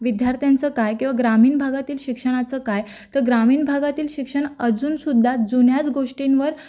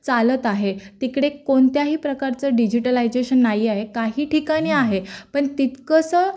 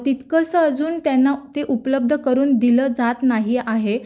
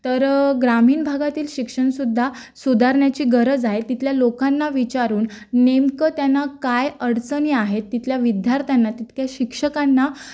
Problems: background sounds at intervals